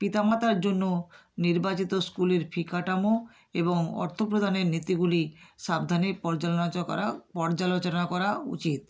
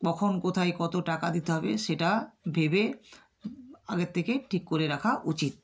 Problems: none marked